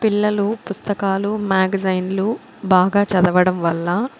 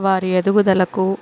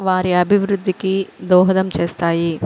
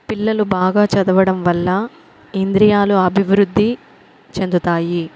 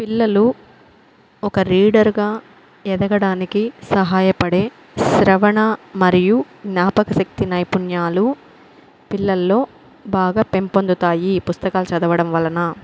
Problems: constant background noise